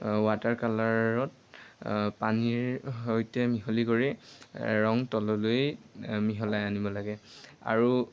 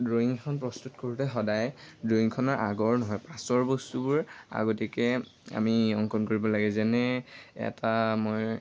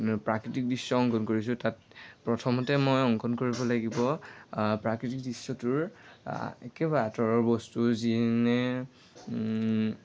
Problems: constant background noise